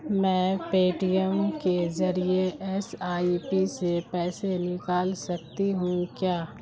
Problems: constant background noise